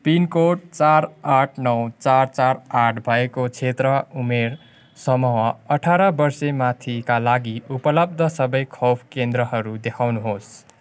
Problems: none marked